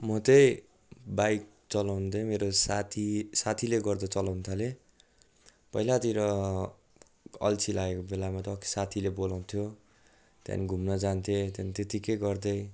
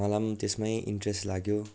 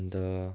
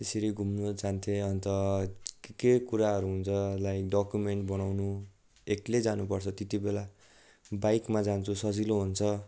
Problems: none marked